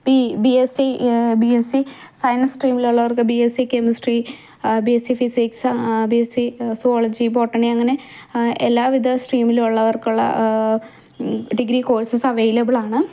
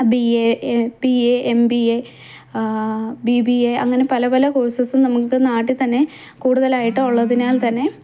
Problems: background sounds at intervals